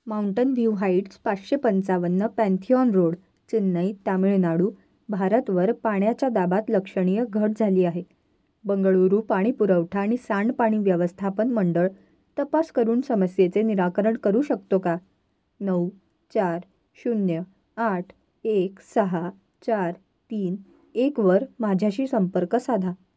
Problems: background sounds at intervals